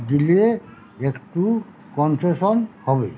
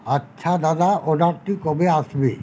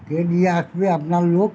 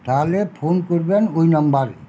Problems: constant background noise, background conversations at intervals